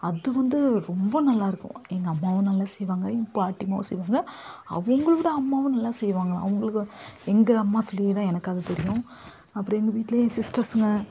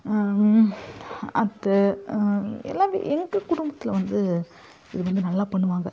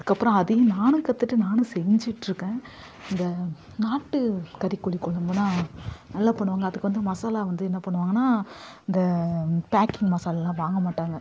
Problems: constant background noise